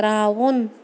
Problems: constant background noise